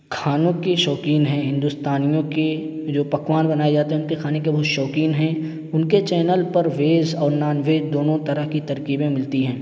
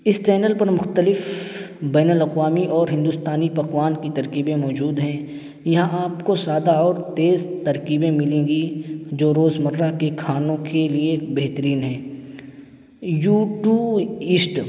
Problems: constant background noise